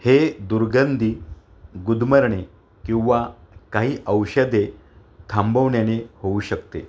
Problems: constant background noise